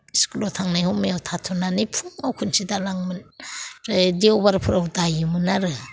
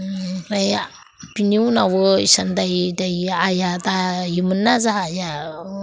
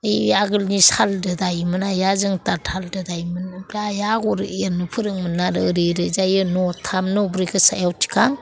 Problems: none marked